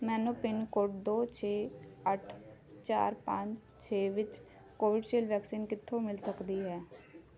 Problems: continuous background conversations